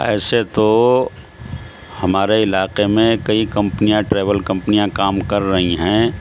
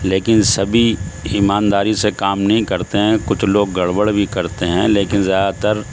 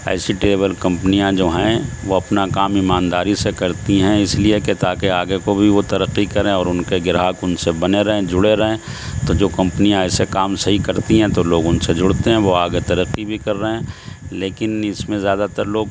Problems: constant background noise